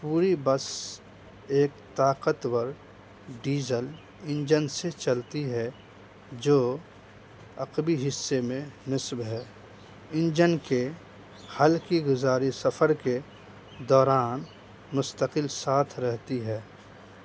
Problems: constant background noise